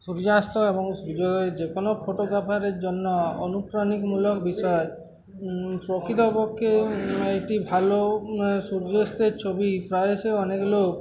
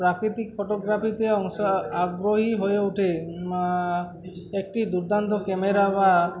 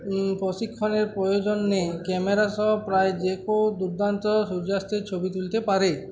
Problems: constant background noise, continuous background conversations